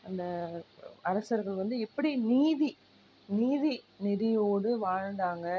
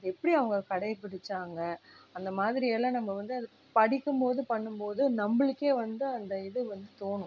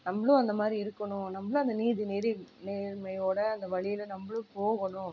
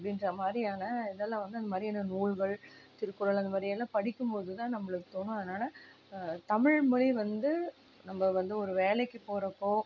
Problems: low volume